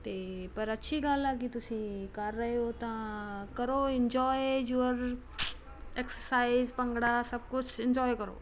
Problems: constant background noise